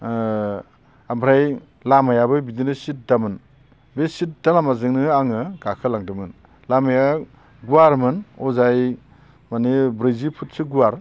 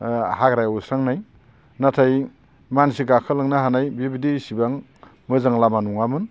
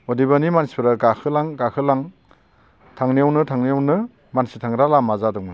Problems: constant background noise